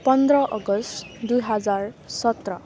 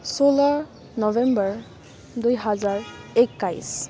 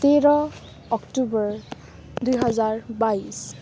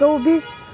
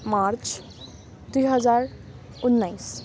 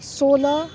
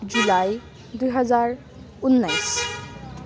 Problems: constant background noise